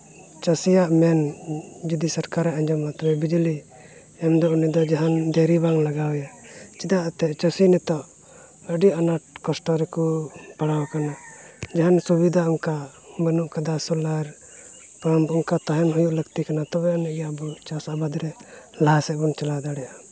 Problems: background sounds at intervals, background conversations at intervals